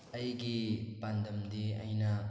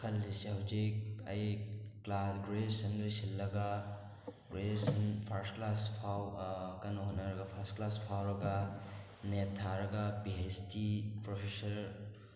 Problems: background sounds at intervals